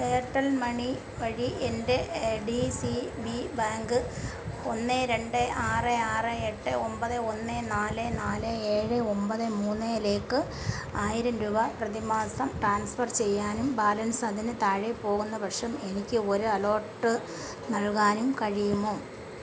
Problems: constant background noise